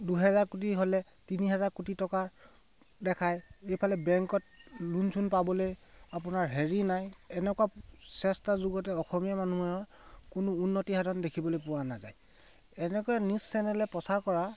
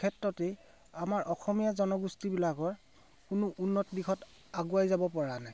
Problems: background sounds at intervals